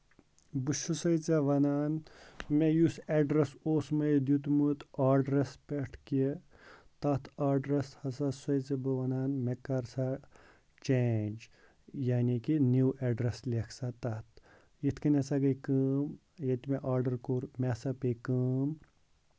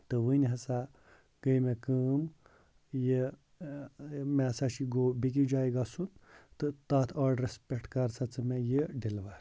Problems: constant background noise